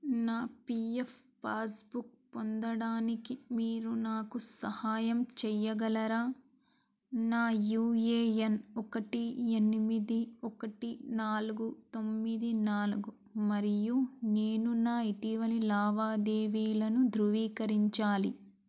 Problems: background sounds at intervals